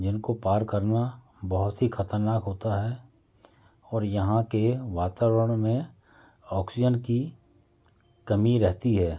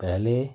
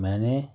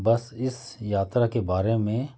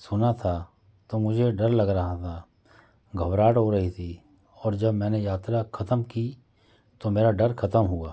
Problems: none marked